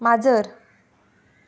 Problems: none marked